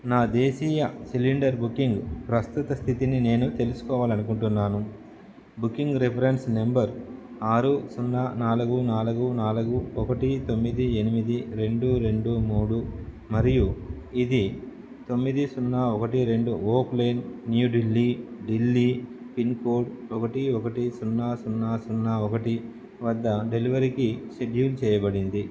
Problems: none marked